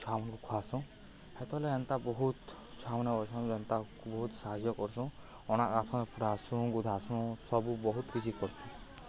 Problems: low volume